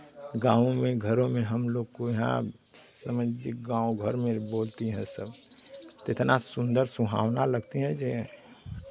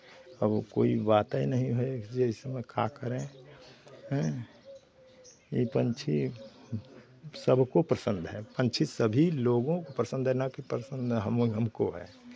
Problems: constant background noise, continuous background conversations